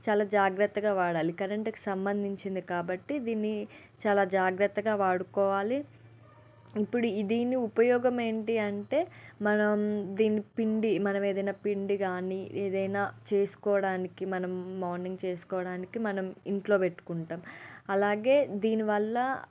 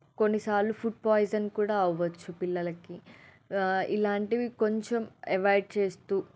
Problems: none marked